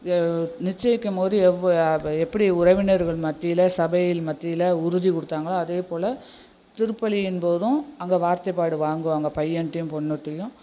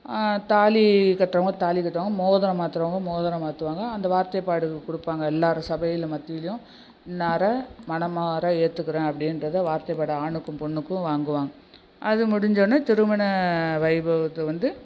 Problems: background sounds at intervals